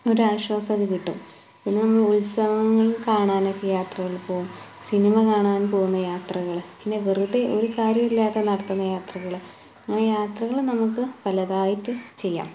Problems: background sounds at intervals